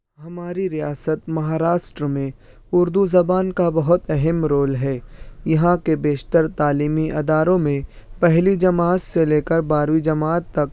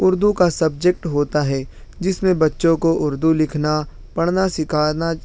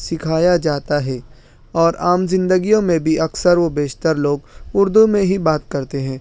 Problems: none marked